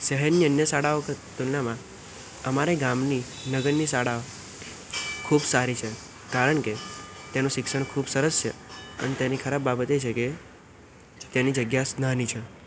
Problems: constant background noise